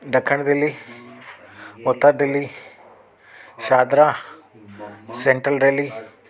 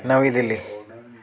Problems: constant background noise